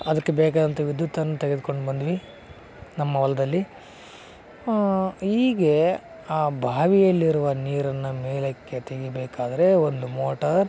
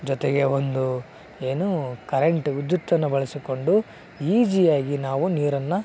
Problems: none marked